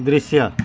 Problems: constant background noise